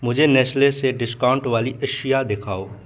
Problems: none marked